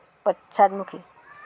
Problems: background sounds at intervals